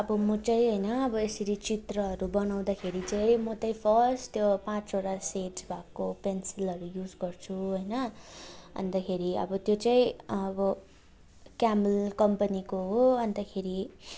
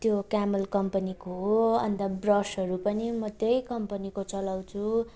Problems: none marked